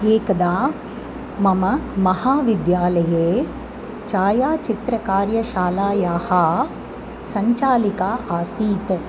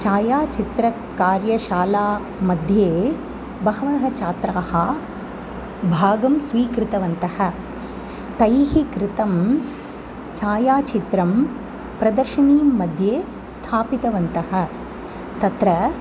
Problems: constant background noise